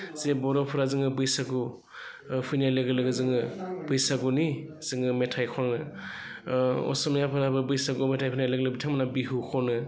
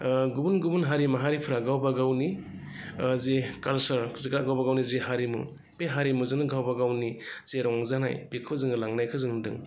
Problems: constant background noise